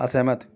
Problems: background sounds at intervals, background conversations at intervals